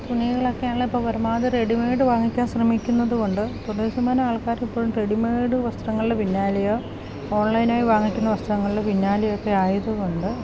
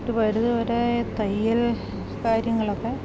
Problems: constant background noise, low volume